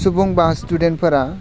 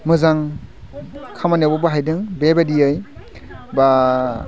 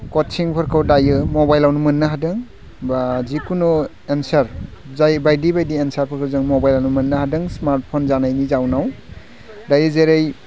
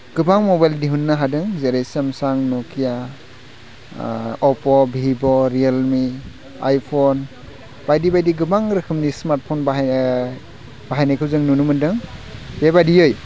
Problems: low volume